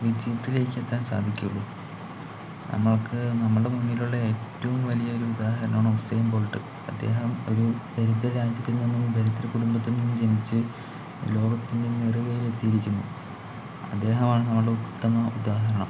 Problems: low volume